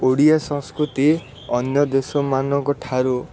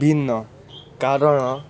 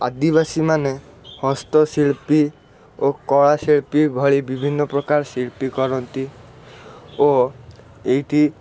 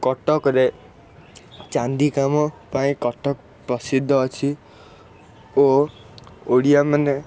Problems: constant background noise